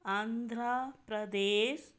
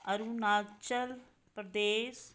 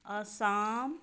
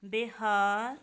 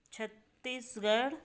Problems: none marked